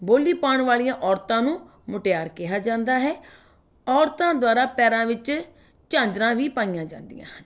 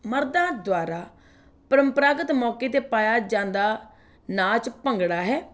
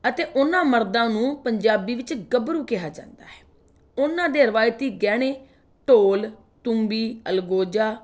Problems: background conversations at intervals